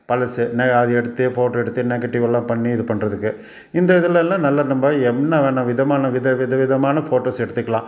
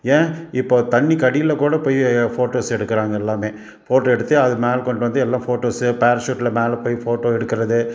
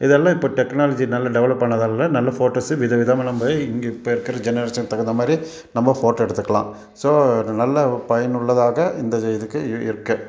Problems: none marked